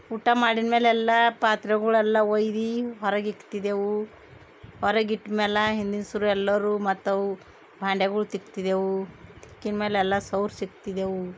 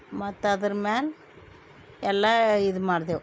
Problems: none marked